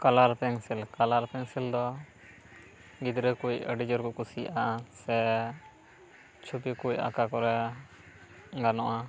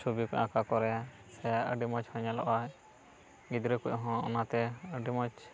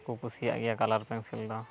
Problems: none marked